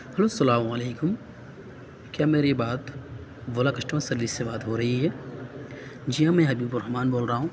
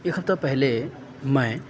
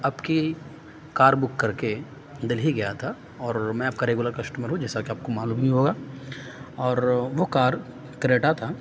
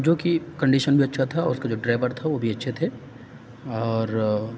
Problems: none marked